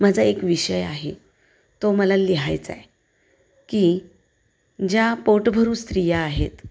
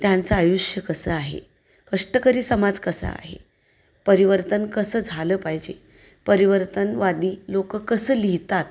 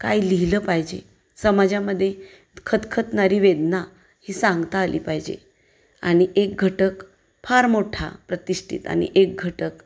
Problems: none marked